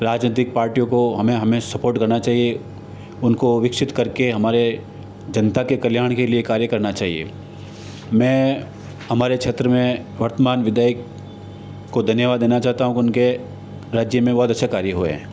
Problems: constant background noise